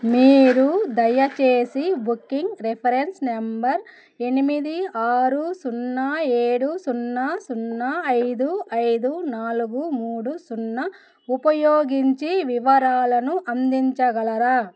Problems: background sounds at intervals